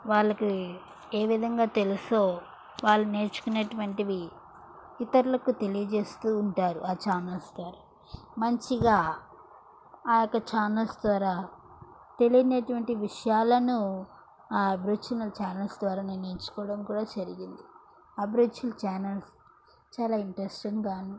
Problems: background sounds at intervals